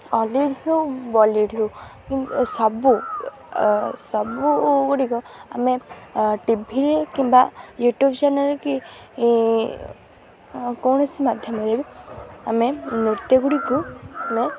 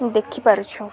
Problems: constant background noise